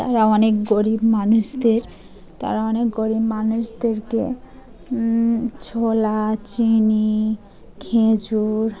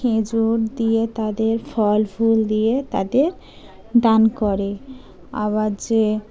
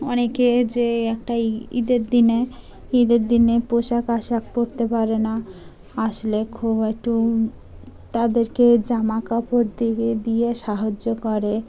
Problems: constant background noise, background conversations at intervals